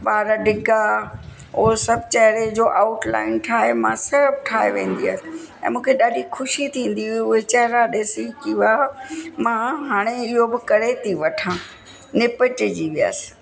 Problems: constant background noise, echo